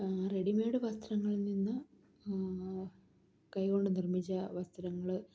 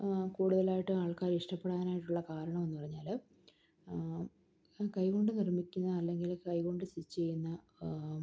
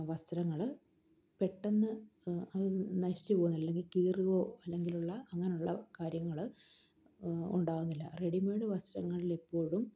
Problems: none marked